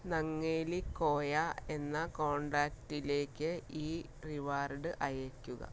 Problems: background sounds at intervals, low volume